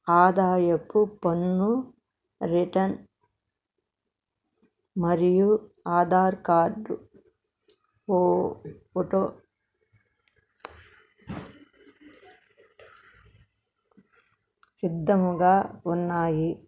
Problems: none marked